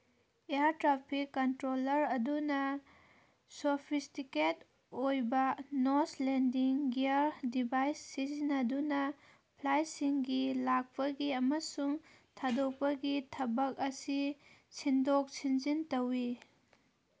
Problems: background sounds at intervals